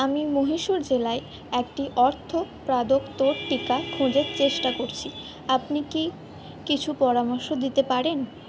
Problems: background sounds at intervals